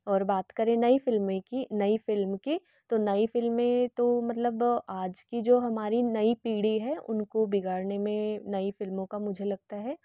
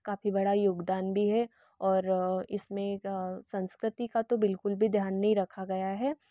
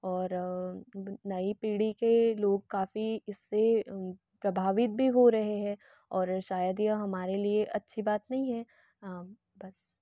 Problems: none marked